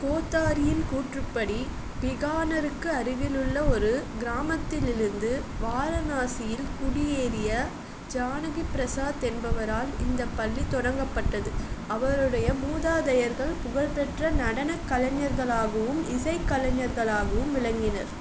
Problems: constant background noise